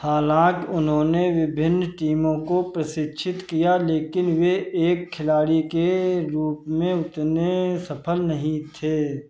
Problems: none marked